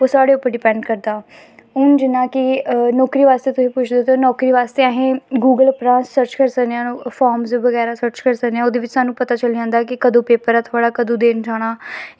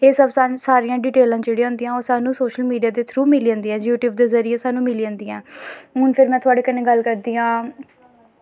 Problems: none marked